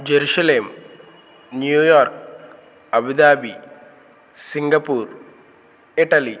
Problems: constant background noise